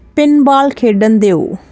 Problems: constant background noise